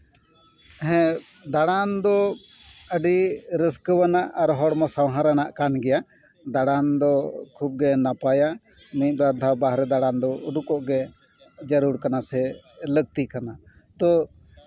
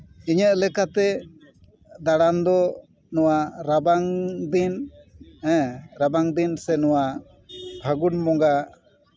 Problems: background conversations at intervals